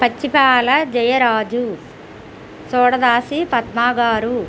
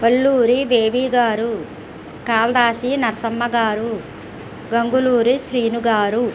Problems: constant background noise